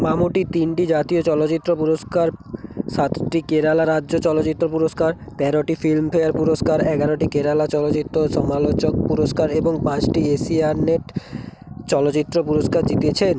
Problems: constant background noise, continuous background conversations